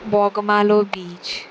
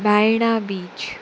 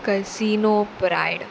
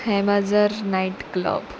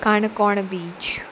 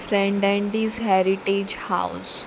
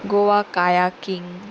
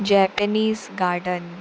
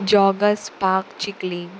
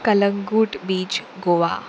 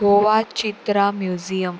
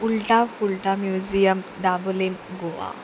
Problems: constant background noise